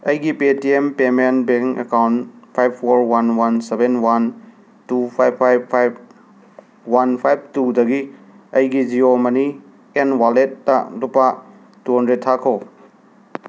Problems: constant background noise